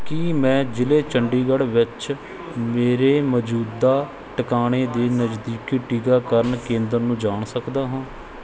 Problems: background sounds at intervals